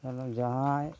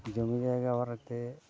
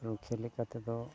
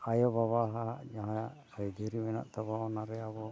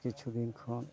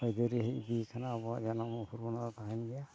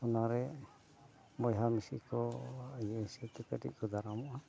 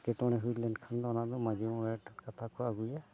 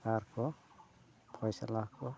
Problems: background sounds at intervals, continuous background conversations, low volume